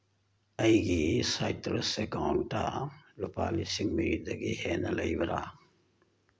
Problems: none marked